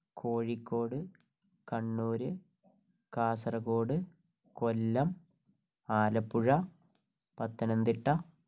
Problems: low volume